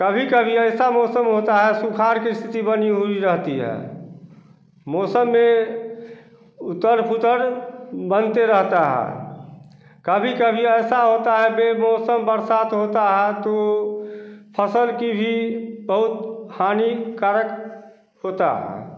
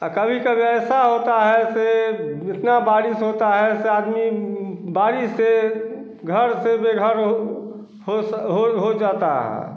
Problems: constant background noise